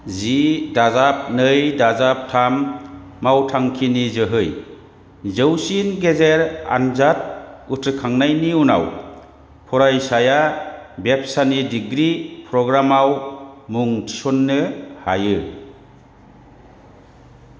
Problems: constant background noise